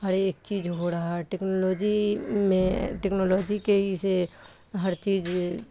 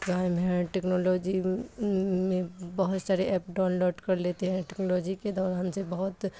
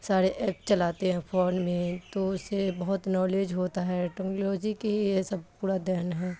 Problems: constant background noise